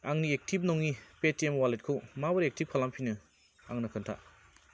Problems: constant background noise